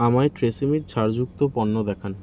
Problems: constant background noise